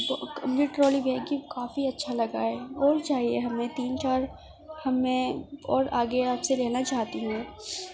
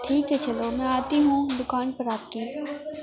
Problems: constant background noise, continuous background conversations